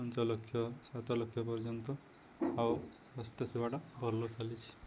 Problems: continuous background conversations